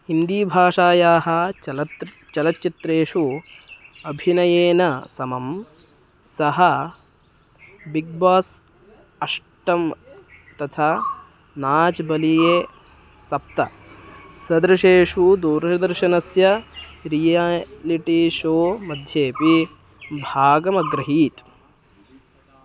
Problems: constant background noise